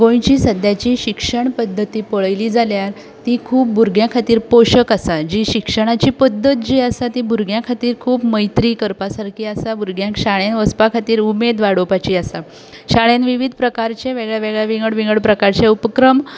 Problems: constant background noise